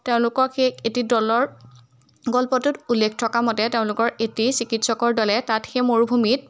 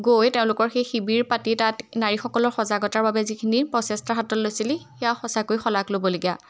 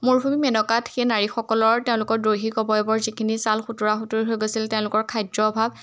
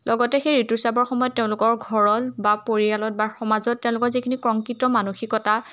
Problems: none marked